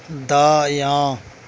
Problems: none marked